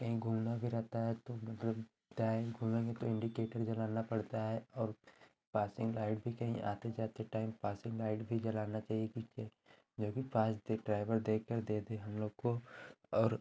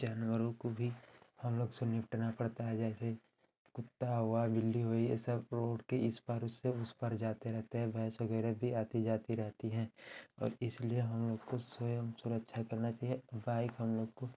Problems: none marked